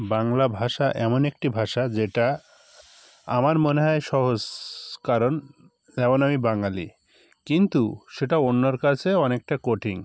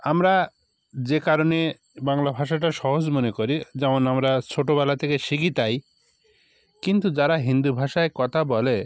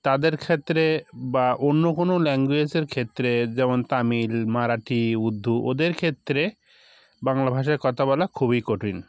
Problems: none marked